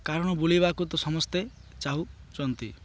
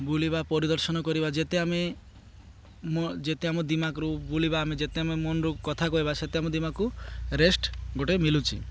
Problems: none marked